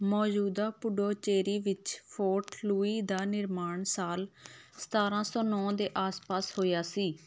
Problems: none marked